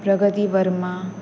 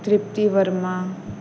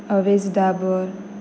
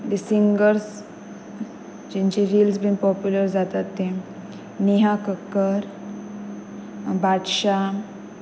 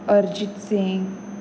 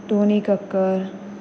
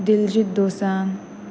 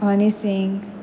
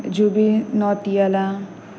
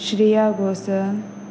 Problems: constant background noise